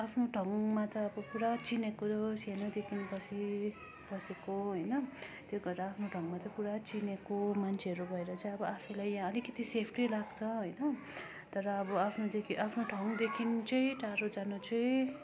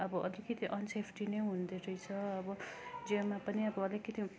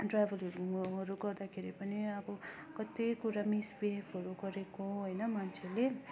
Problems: constant background noise, continuous background conversations